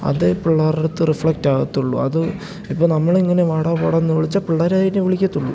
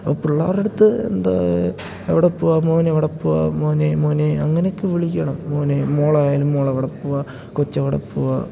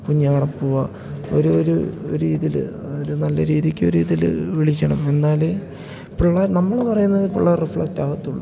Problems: none marked